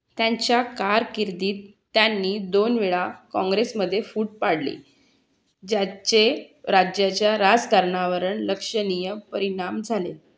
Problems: background sounds at intervals